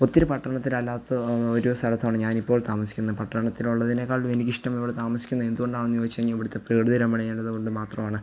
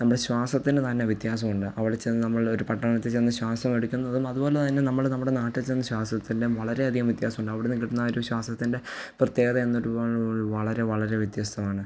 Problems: low volume